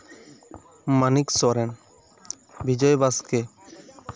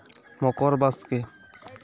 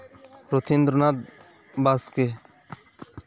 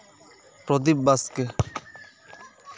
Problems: background sounds at intervals